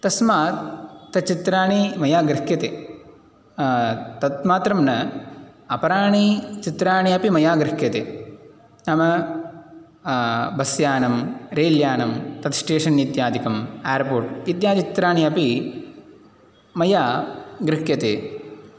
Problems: none marked